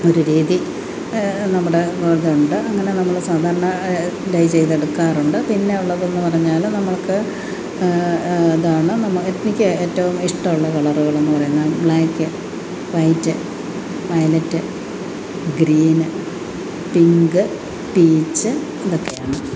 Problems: constant background noise